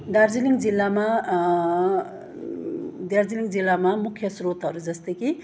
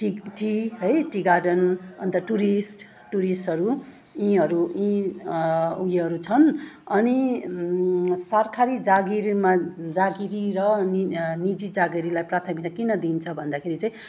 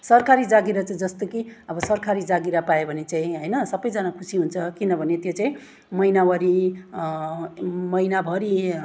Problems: none marked